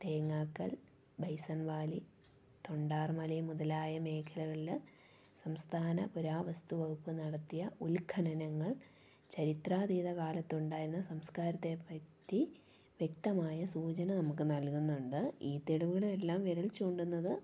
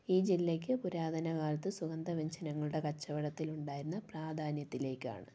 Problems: low volume